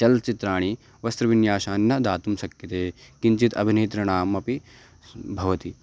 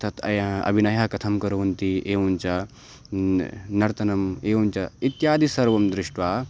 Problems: none marked